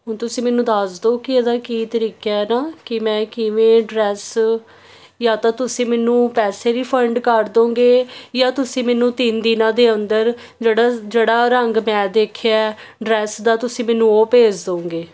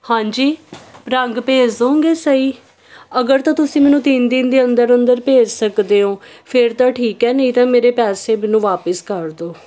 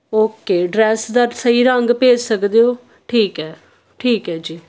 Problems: none marked